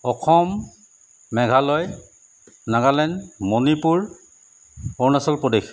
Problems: constant background noise